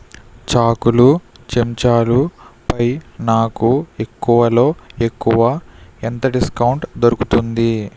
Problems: none marked